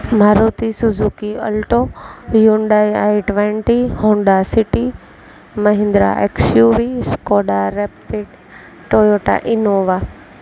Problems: constant background noise